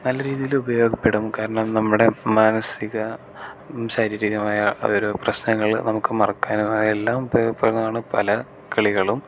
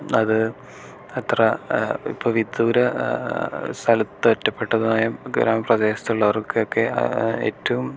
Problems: none marked